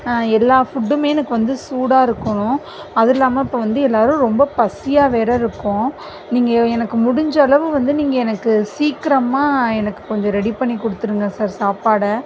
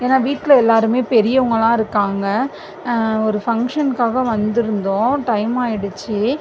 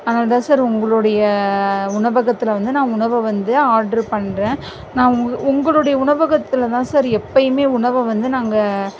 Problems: constant background noise